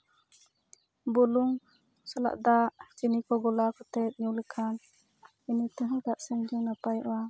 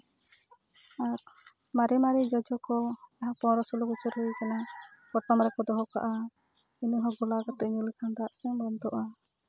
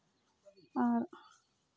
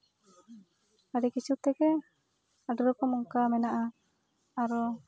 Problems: background sounds at intervals, background conversations at intervals